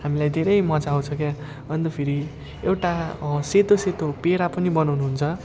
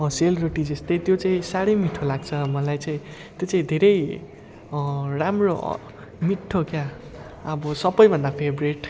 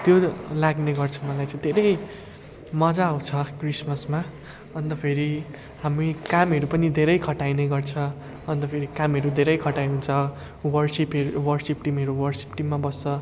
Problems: none marked